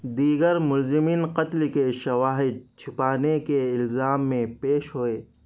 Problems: none marked